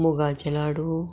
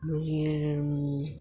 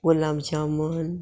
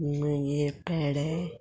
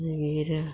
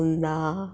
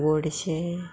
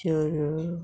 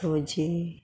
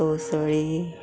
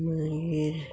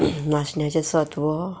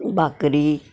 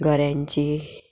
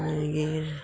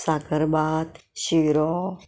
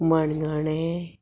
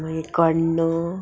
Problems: background sounds at intervals